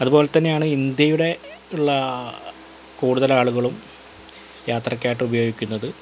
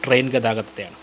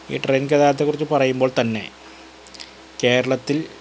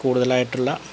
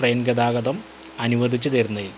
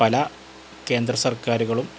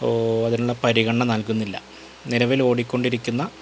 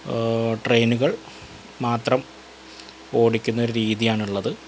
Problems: constant background noise